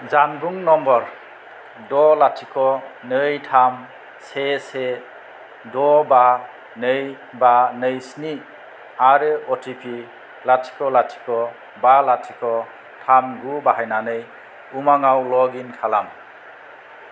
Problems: none marked